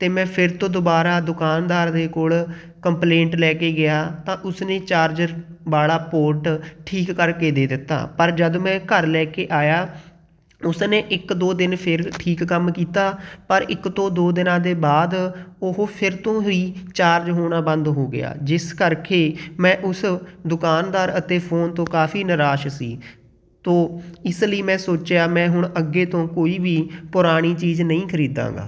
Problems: none marked